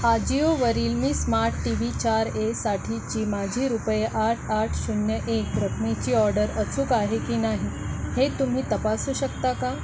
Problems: constant background noise